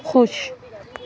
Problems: none marked